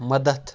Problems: background sounds at intervals